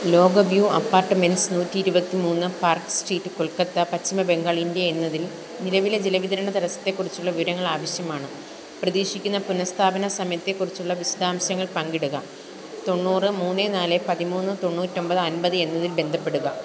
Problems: constant background noise